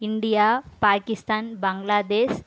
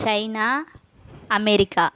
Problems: none marked